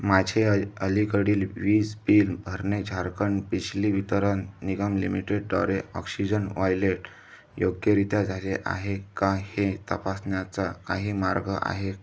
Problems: background sounds at intervals